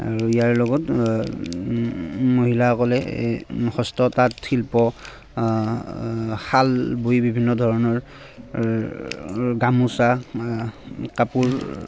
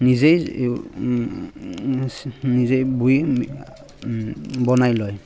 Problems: constant background noise, background conversations at intervals